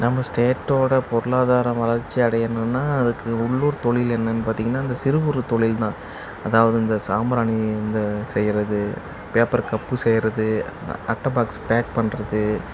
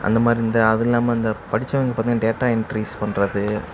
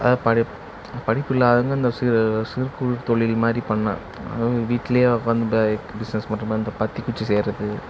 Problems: background sounds at intervals, background conversations at intervals